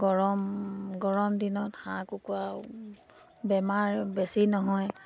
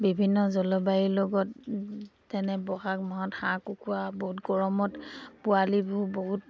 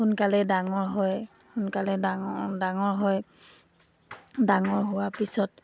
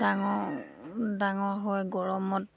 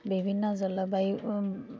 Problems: background sounds at intervals